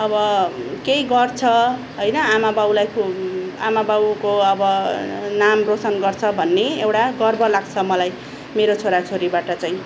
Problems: none marked